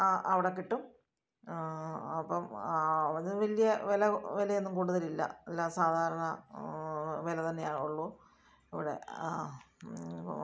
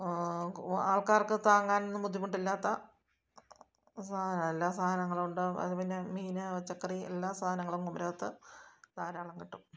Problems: none marked